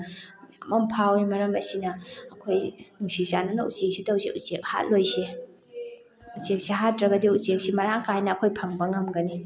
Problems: background sounds at intervals, background conversations at intervals